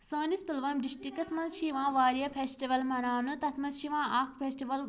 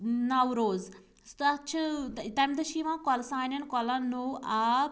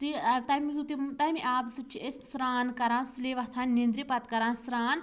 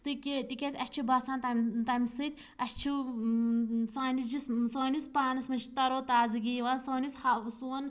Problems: constant background noise